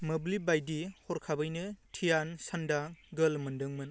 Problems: low volume